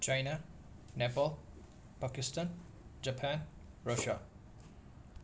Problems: constant background noise